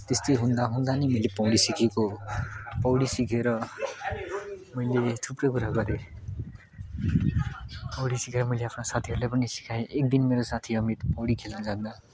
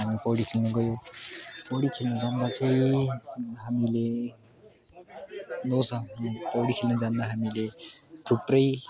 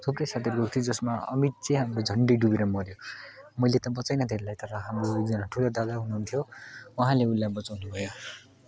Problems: constant background noise, continuous background conversations